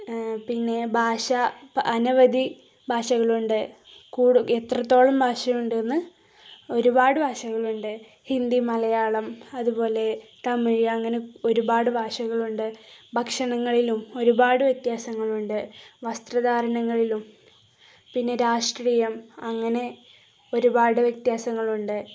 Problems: none marked